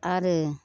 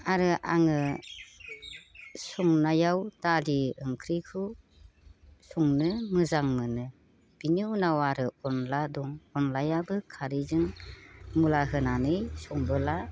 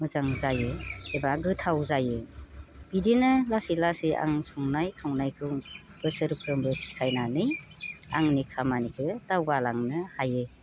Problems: constant background noise